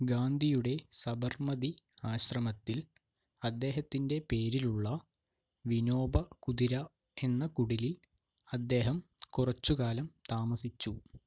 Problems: none marked